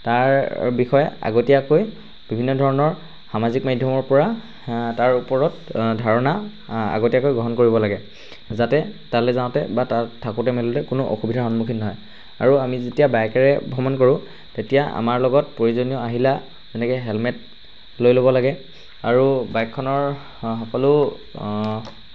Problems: constant background noise